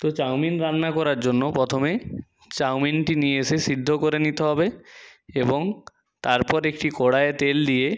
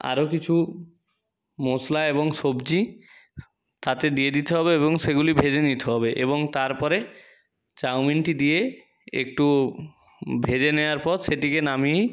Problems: background sounds at intervals